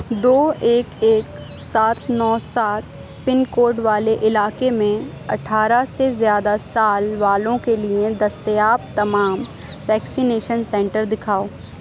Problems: constant background noise